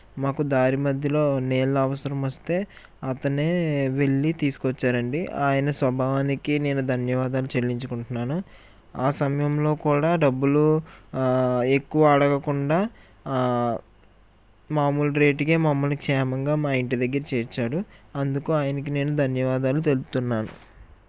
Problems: constant background noise